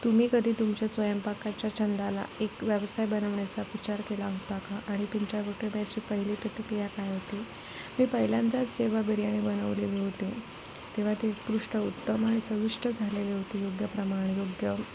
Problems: constant background noise